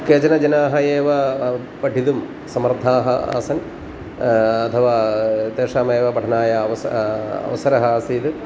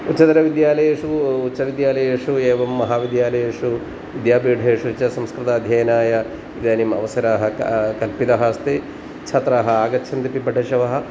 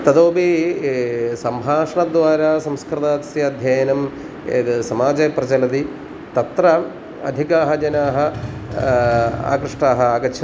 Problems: constant background noise